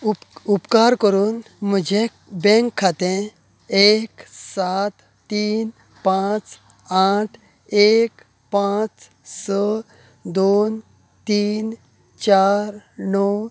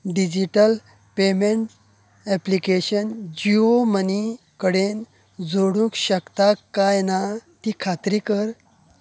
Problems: constant background noise